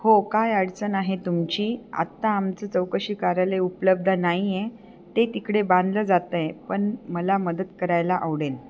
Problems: background sounds at intervals